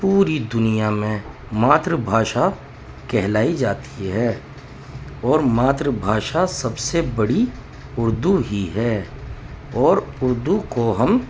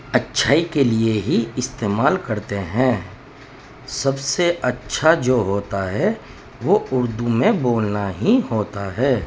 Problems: constant background noise